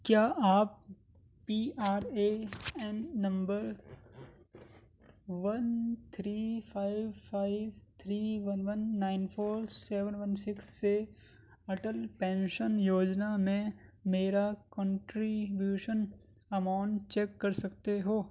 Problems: background sounds at intervals